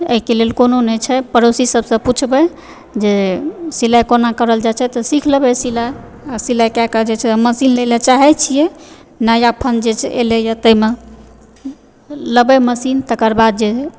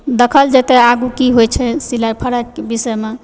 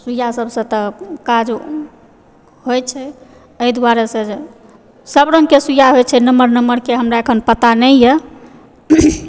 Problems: background conversations at intervals